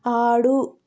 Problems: none marked